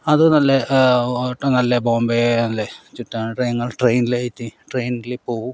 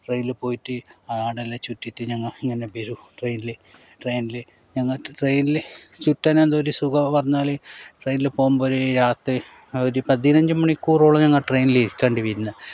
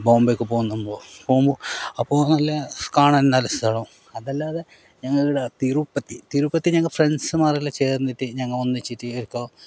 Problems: none marked